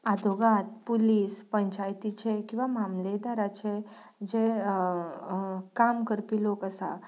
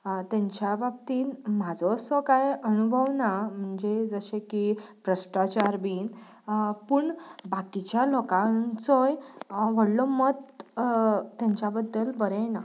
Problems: background sounds at intervals